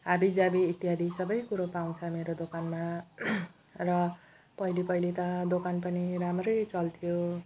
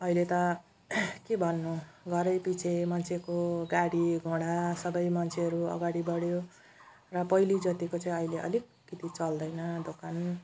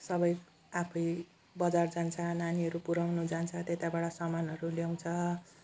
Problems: background sounds at intervals